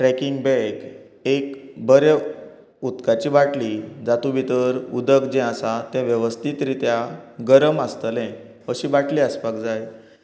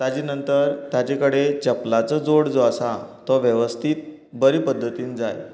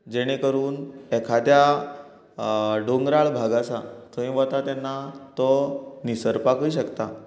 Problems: constant background noise